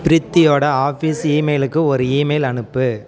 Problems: continuous background conversations